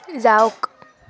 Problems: none marked